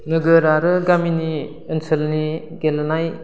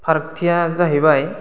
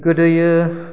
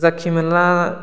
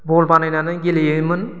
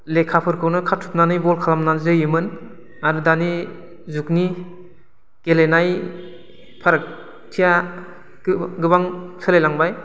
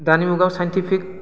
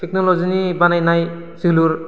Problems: constant background noise